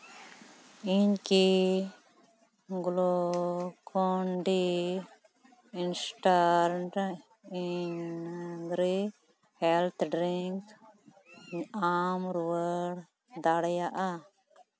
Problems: background sounds at intervals, continuous background conversations